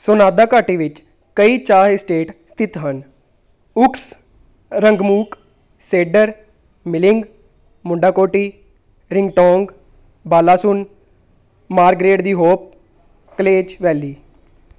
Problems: background sounds at intervals